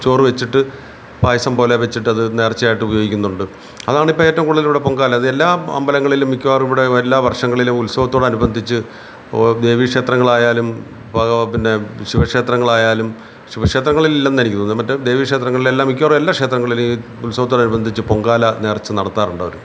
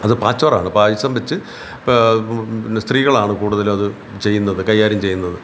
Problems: none marked